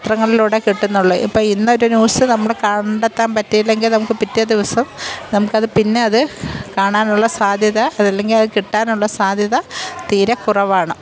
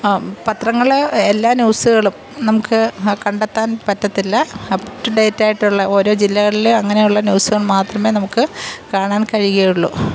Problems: background sounds at intervals